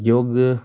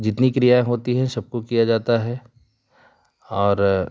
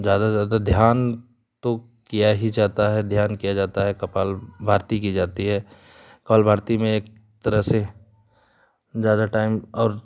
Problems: none marked